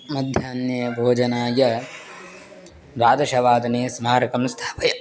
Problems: constant background noise, continuous background conversations